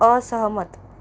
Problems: background sounds at intervals